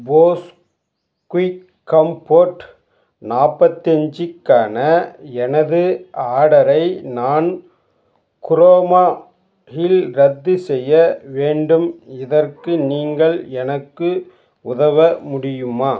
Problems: background sounds at intervals